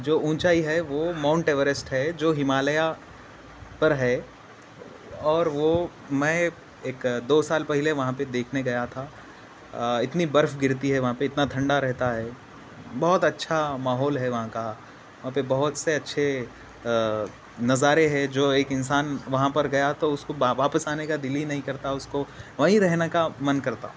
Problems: constant background noise